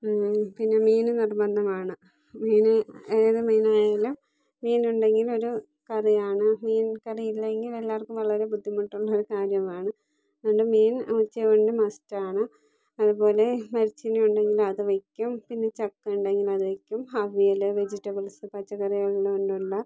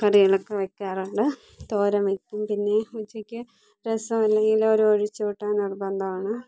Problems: low volume